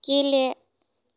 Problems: none marked